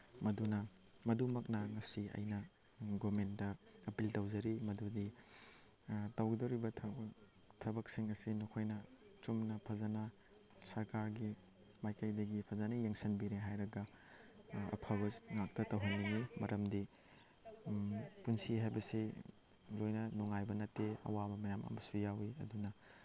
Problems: background sounds at intervals